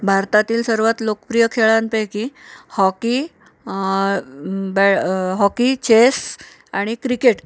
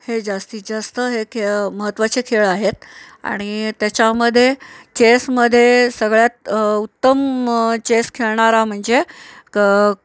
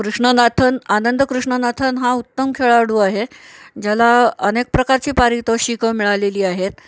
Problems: none marked